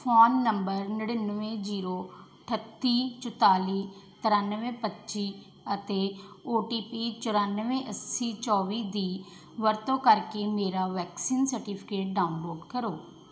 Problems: background sounds at intervals